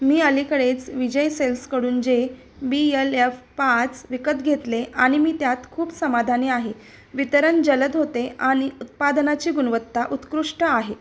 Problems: constant background noise